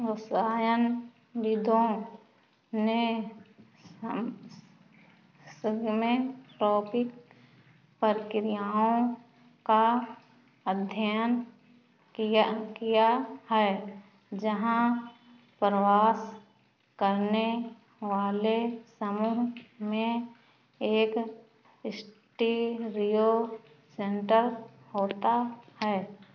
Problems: background sounds at intervals